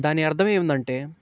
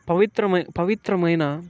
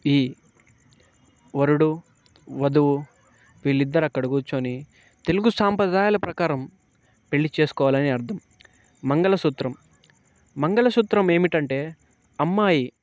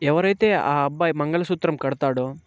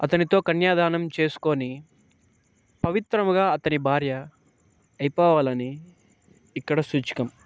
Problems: none marked